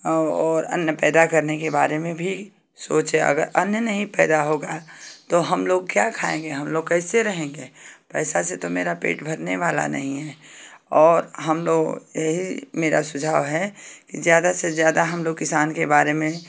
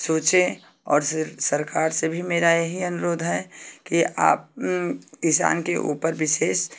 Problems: none marked